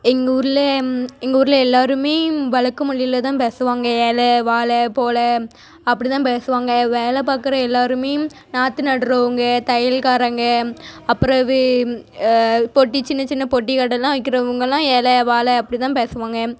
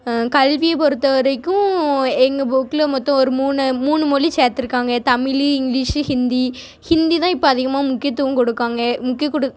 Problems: none marked